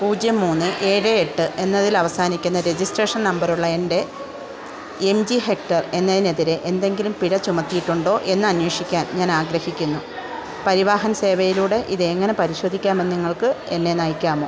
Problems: constant background noise